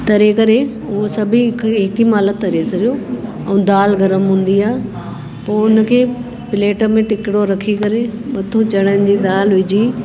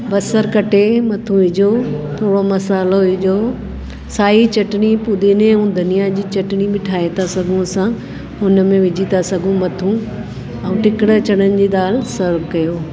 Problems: constant background noise